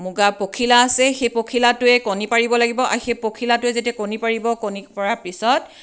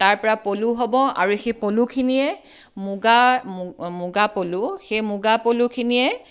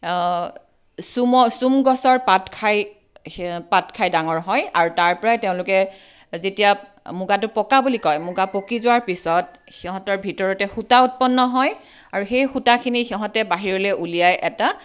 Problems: none marked